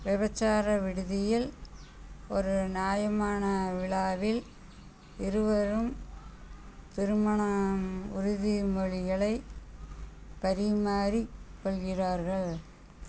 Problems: background sounds at intervals